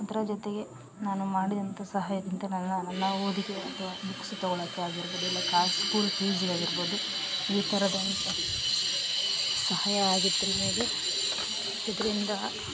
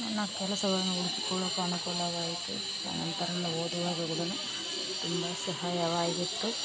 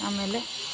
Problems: background sounds at intervals